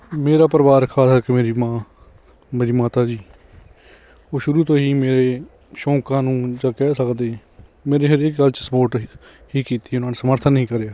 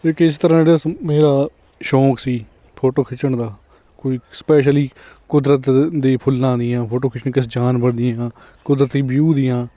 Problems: none marked